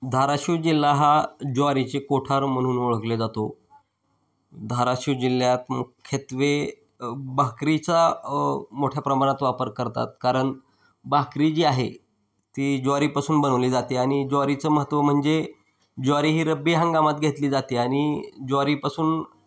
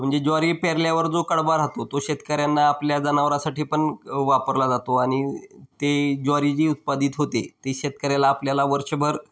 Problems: background sounds at intervals